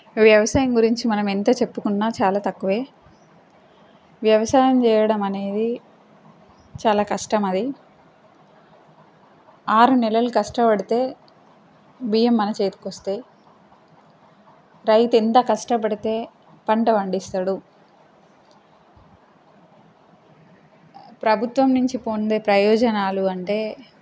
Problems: constant background noise